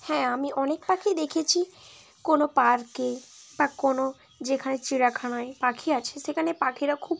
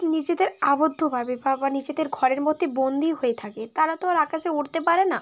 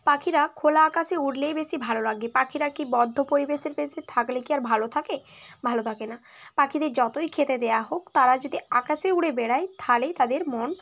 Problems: none marked